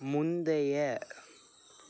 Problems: none marked